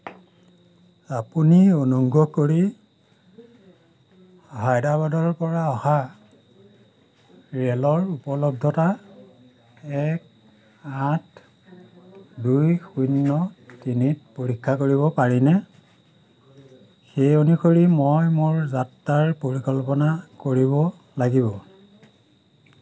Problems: none marked